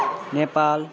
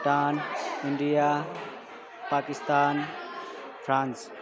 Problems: continuous background conversations